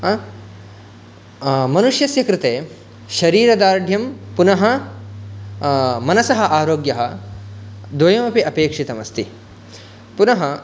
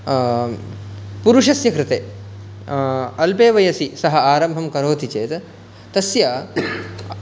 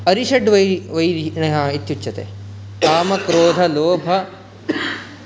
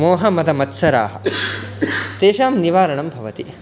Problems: background sounds at intervals, background conversations at intervals